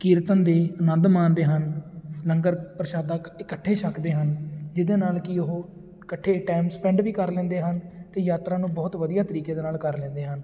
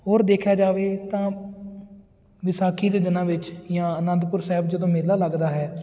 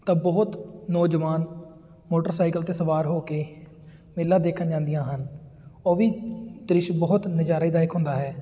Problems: constant background noise